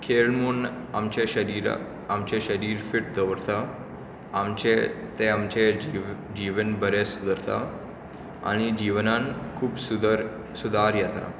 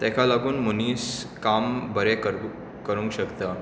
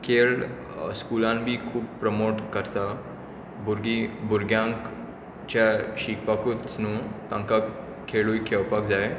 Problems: constant background noise